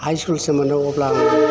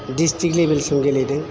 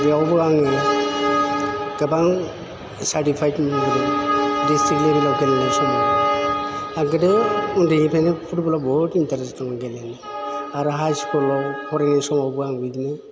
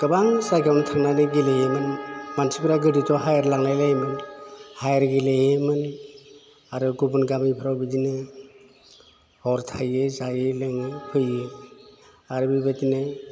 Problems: none marked